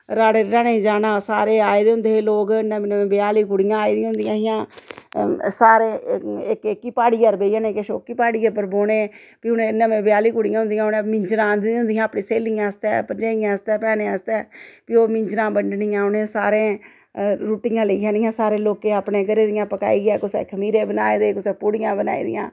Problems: none marked